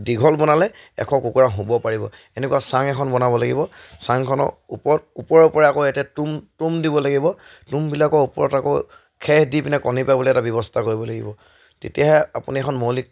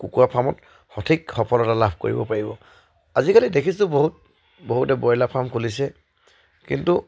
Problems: none marked